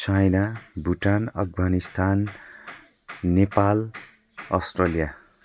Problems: none marked